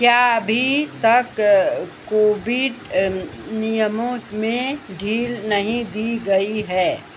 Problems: constant background noise